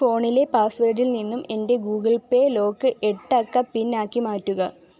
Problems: low volume